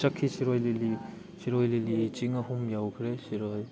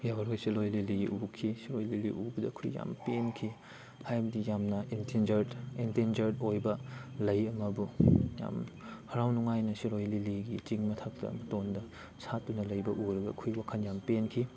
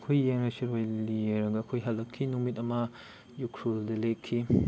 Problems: background sounds at intervals